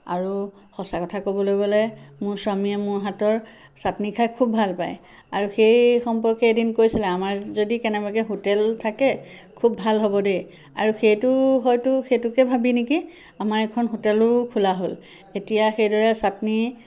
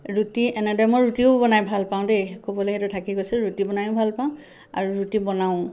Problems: constant background noise